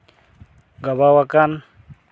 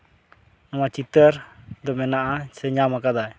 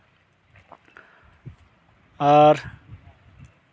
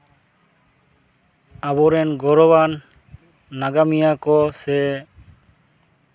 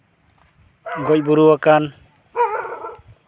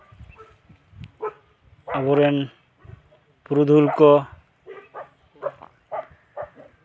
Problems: background sounds at intervals